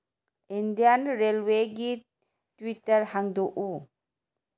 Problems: none marked